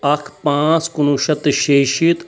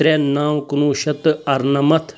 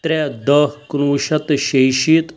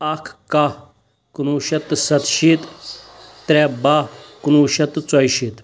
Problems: background sounds at intervals